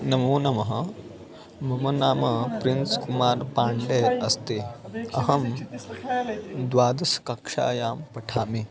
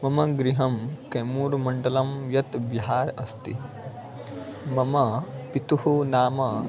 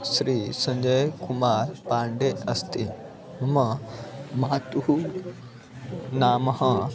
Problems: constant background noise, continuous background conversations